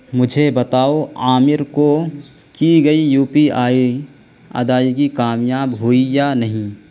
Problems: constant background noise